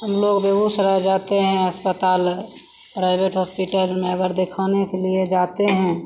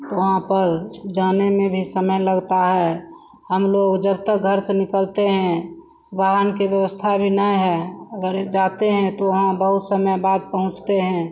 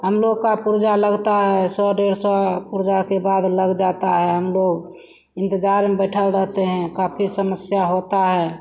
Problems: constant background noise